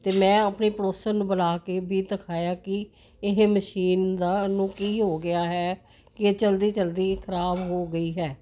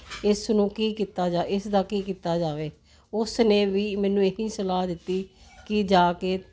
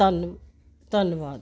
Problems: constant background noise